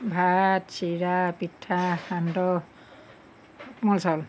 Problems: background sounds at intervals